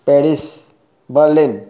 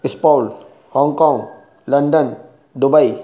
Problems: none marked